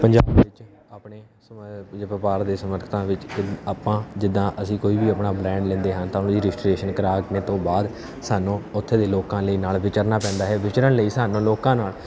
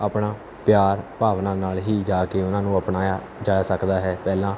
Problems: none marked